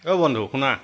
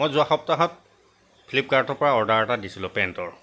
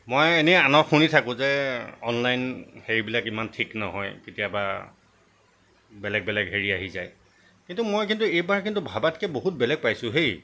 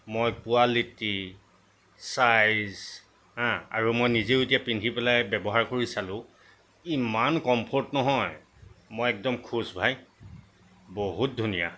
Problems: constant background noise